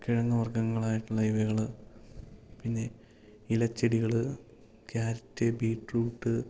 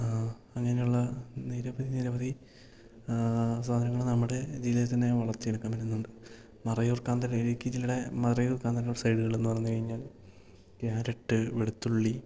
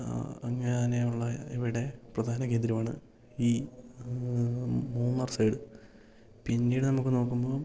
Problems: low volume